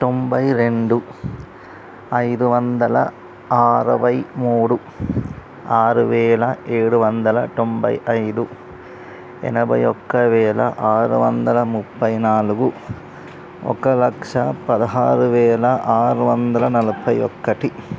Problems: constant background noise